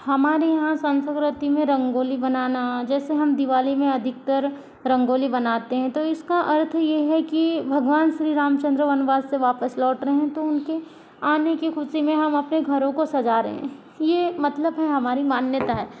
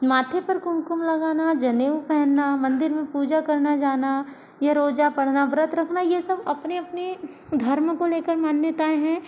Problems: constant background noise